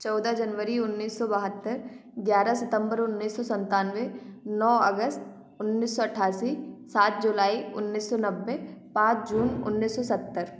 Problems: background sounds at intervals